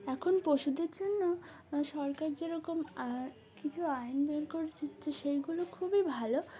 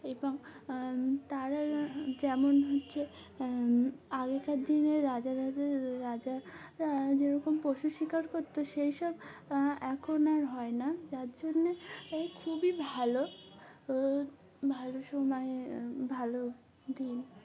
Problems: none marked